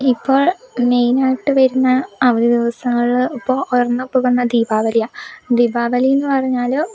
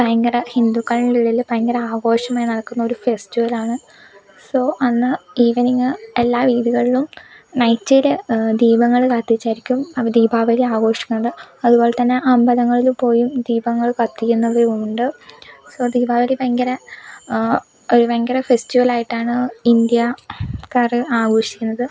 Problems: none marked